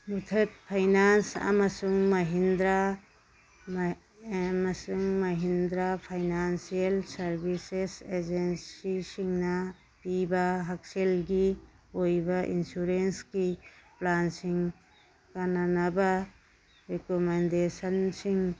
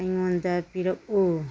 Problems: background sounds at intervals